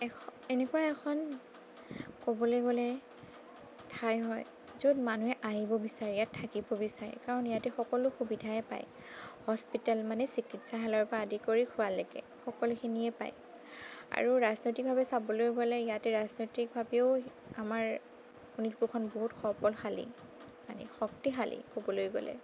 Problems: none marked